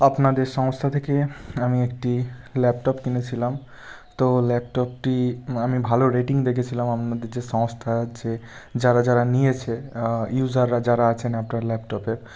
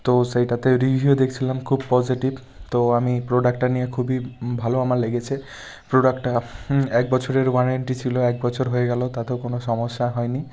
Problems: background sounds at intervals